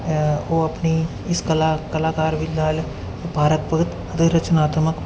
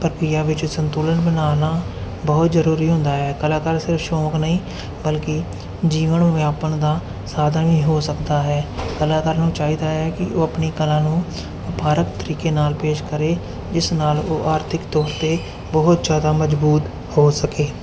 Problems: none marked